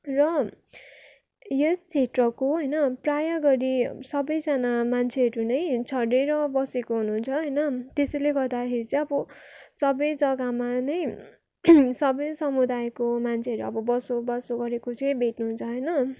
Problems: background sounds at intervals